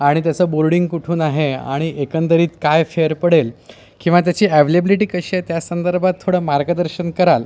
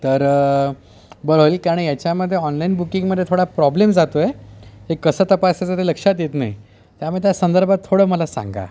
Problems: constant background noise